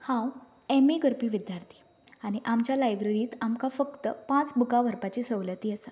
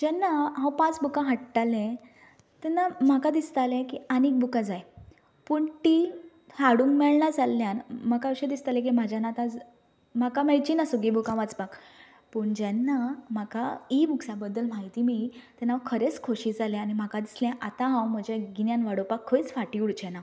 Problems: none marked